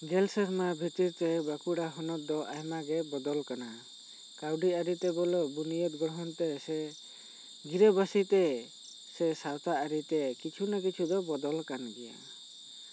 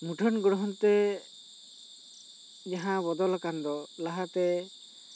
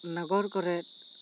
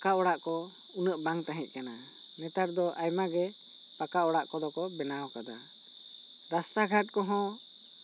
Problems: constant background noise